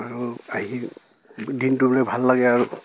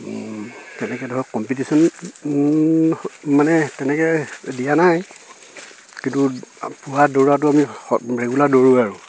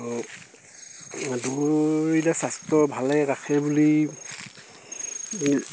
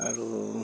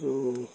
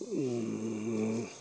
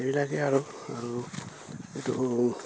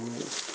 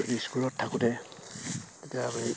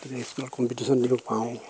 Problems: none marked